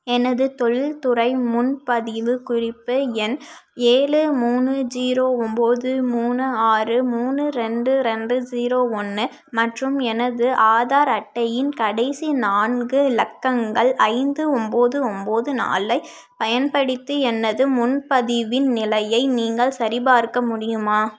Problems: none marked